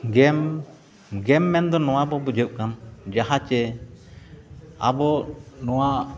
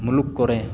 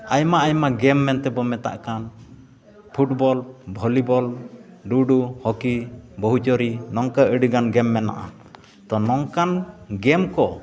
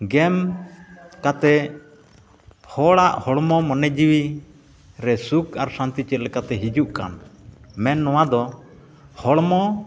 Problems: constant background noise, continuous background conversations